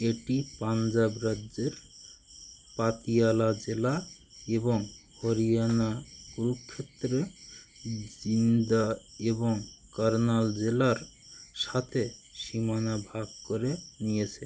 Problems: constant background noise